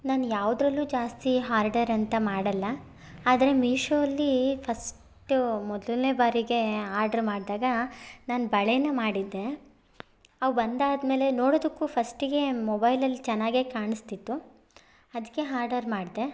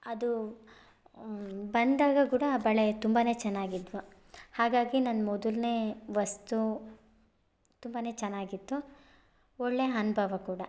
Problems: none marked